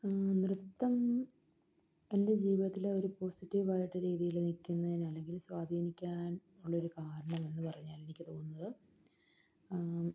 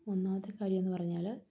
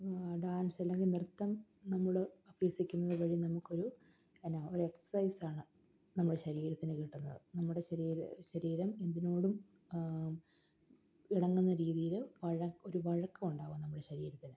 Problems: none marked